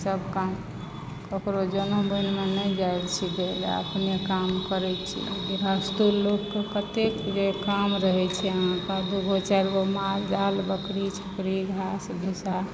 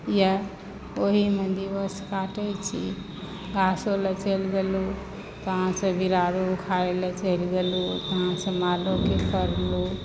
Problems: constant background noise